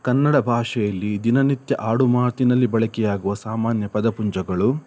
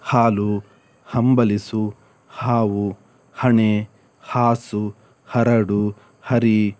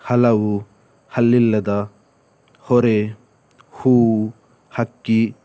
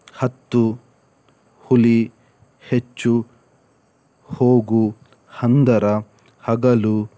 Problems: none marked